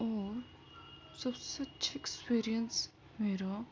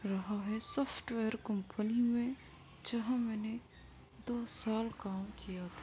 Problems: constant background noise, low volume